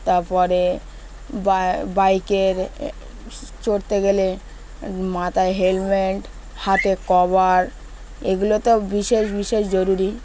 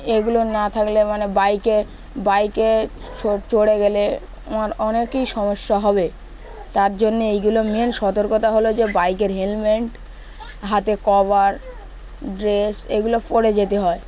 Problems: background sounds at intervals, background conversations at intervals